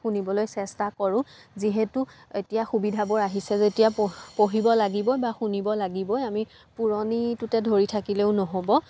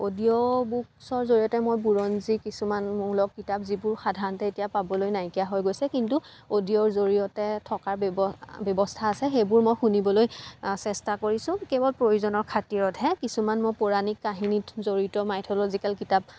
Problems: constant background noise